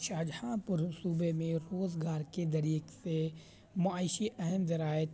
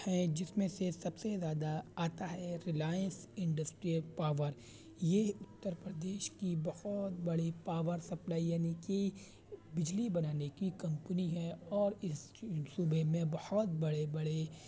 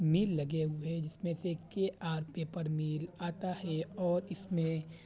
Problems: constant background noise, low volume